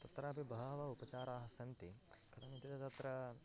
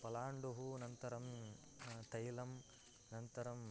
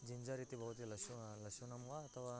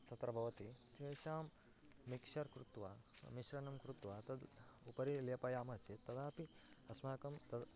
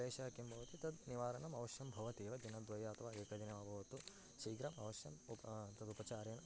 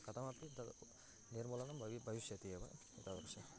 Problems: constant background noise, low volume